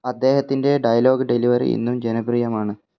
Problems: none marked